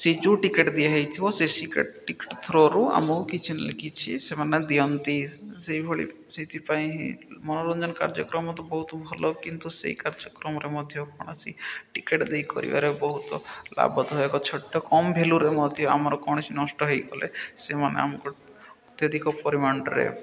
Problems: none marked